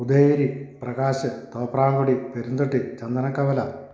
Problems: none marked